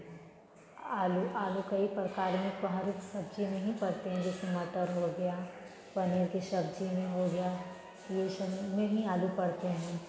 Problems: background sounds at intervals, continuous background conversations